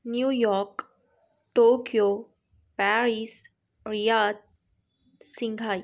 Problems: none marked